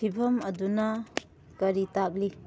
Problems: background sounds at intervals